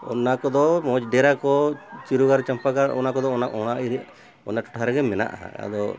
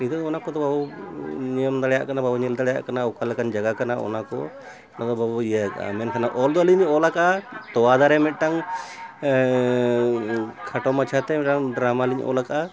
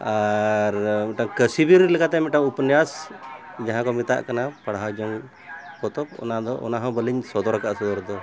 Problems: constant background noise